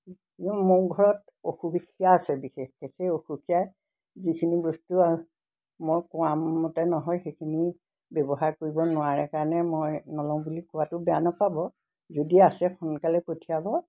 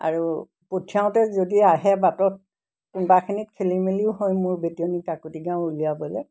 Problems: none marked